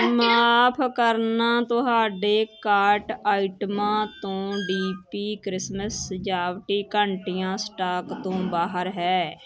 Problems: constant background noise, background conversations at intervals